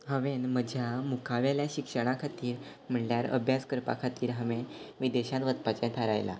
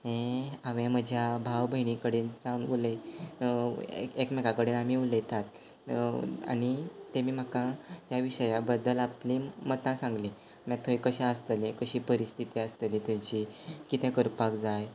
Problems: background sounds at intervals